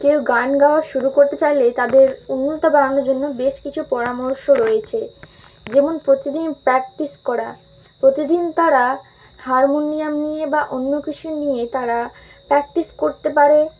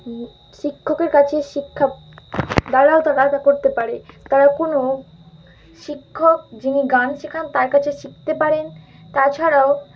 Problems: constant background noise